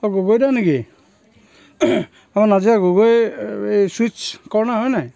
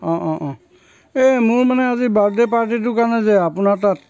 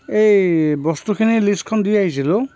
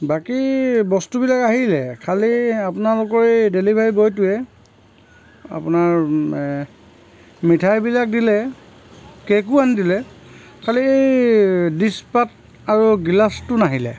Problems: none marked